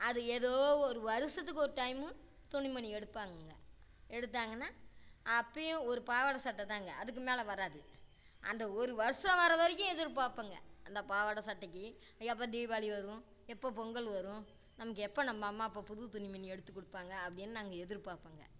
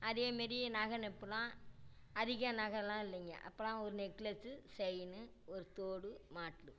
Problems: low volume